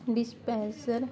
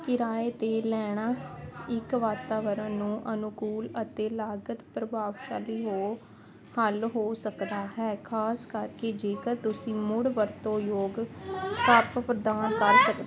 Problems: constant background noise